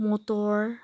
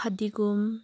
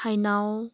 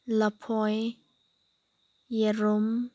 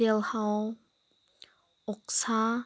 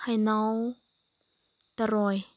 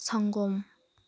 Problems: background sounds at intervals